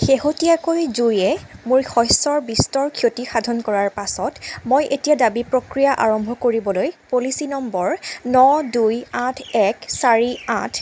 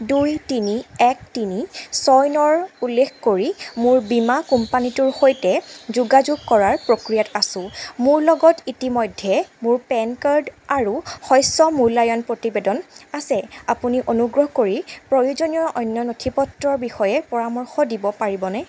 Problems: background sounds at intervals